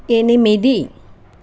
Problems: none marked